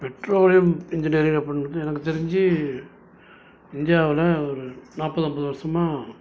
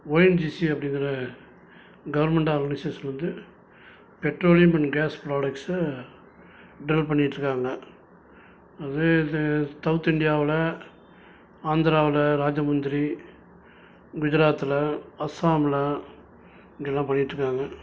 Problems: constant background noise